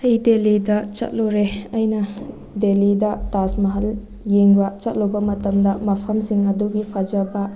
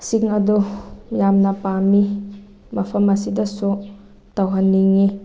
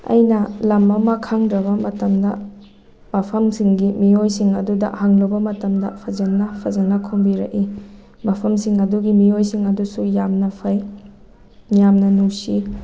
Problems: background sounds at intervals